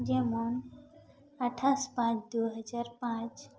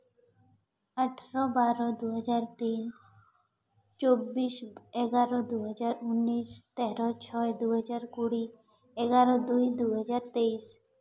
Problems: background sounds at intervals, echo